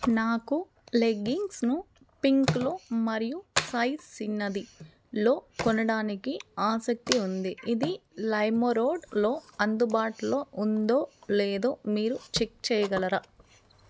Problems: none marked